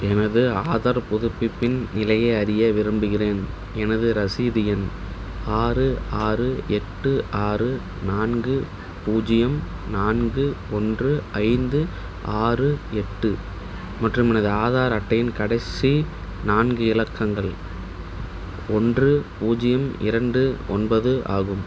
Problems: none marked